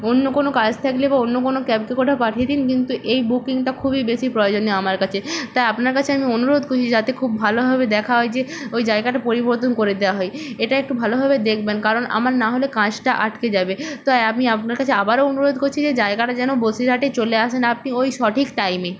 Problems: constant background noise